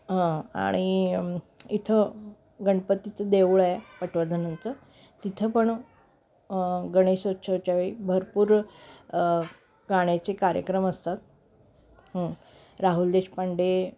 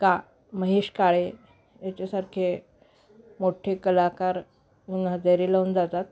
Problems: constant background noise, background conversations at intervals